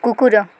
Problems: constant background noise, continuous background conversations